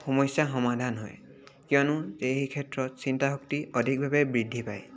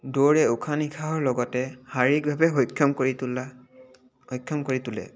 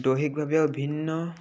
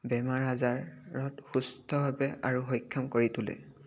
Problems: none marked